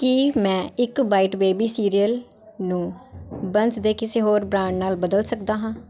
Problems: constant background noise, continuous background conversations